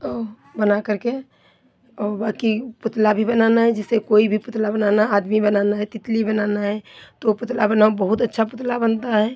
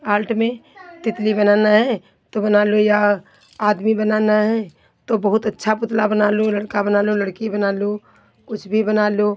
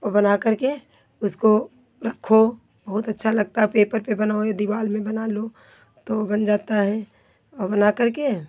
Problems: none marked